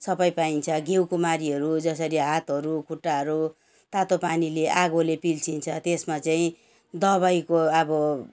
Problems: none marked